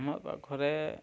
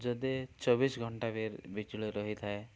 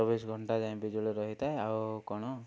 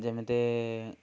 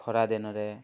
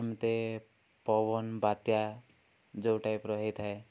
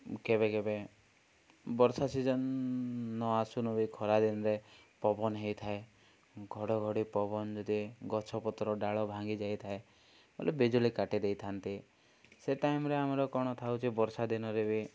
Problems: low volume